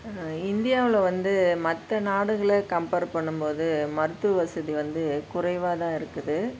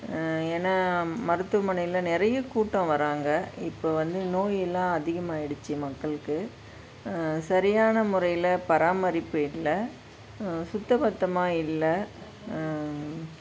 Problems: constant background noise